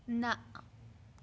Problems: none marked